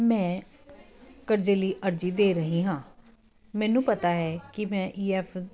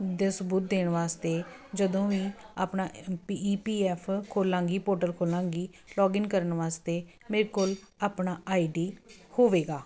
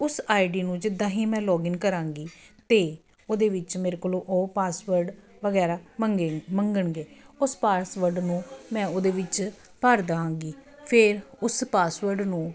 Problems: none marked